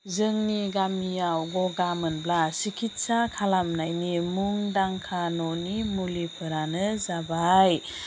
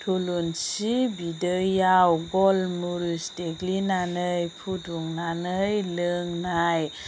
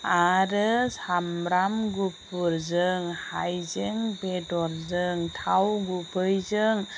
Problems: constant background noise